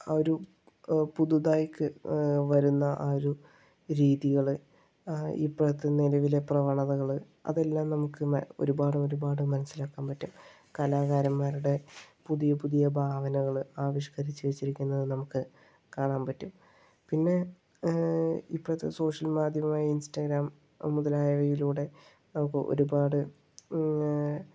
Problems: low volume